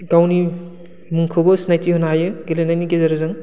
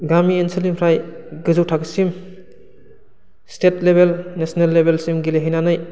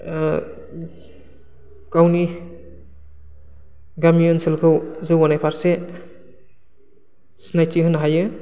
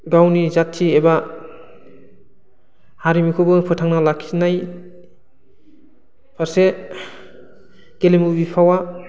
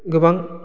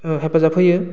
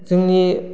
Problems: low volume